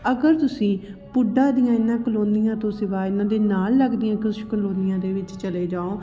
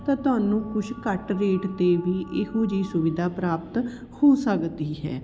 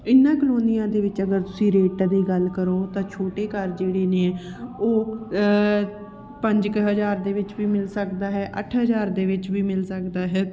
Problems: background conversations at intervals